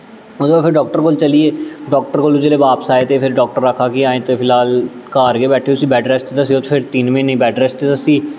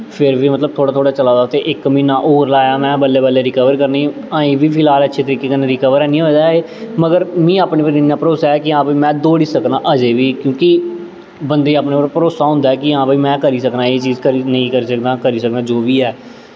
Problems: constant background noise, echo